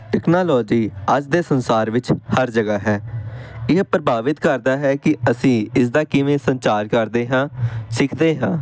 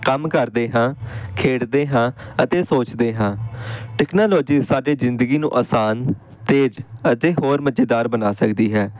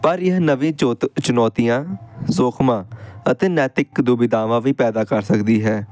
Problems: background sounds at intervals